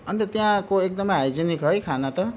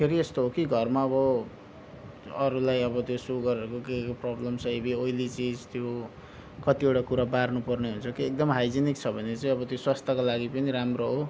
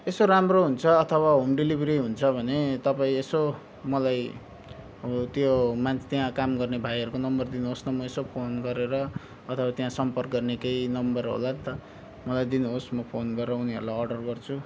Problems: none marked